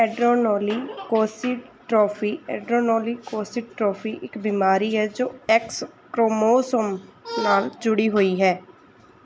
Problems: background sounds at intervals